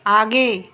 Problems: constant background noise